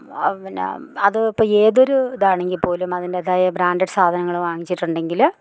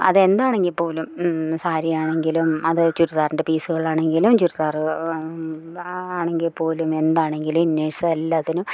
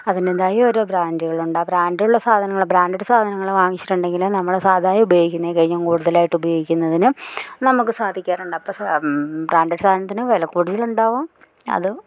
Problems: none marked